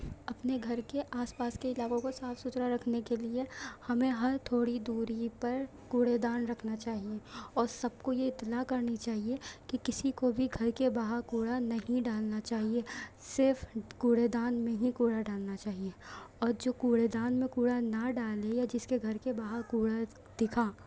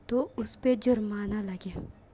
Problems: none marked